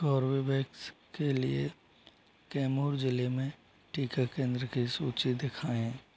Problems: low volume